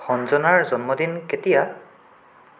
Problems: constant background noise